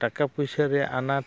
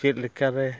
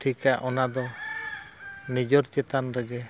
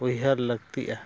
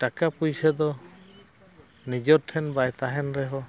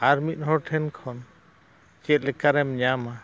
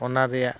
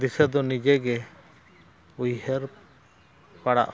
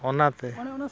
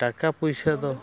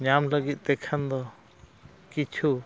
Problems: constant background noise, background conversations at intervals